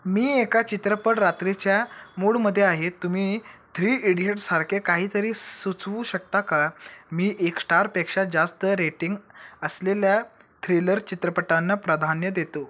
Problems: none marked